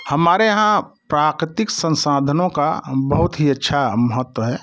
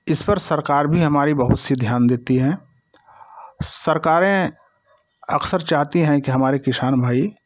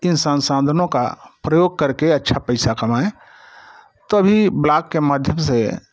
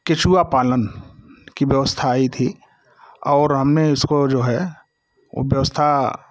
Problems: none marked